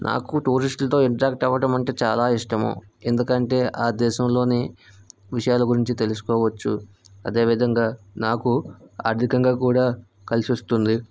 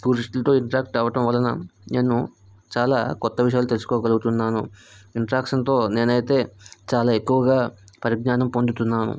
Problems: none marked